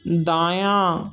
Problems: none marked